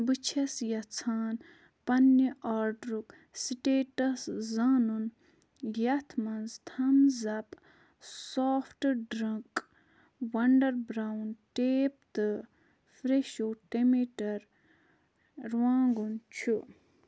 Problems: none marked